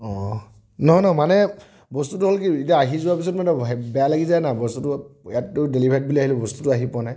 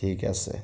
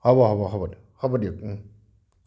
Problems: none marked